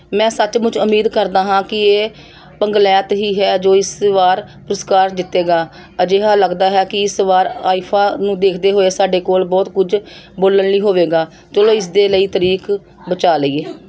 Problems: background conversations at intervals